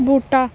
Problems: constant background noise